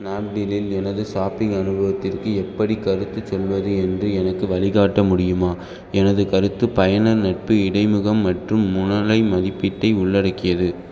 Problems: constant background noise